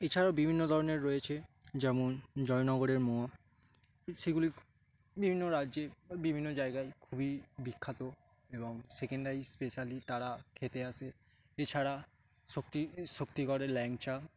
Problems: constant background noise